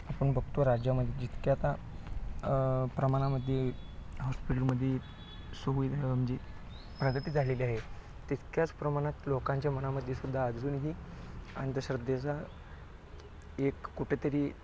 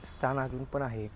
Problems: low volume